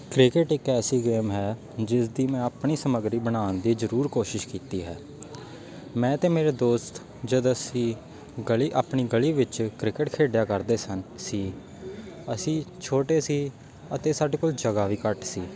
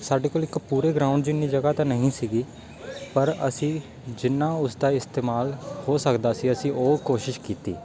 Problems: background sounds at intervals, continuous background conversations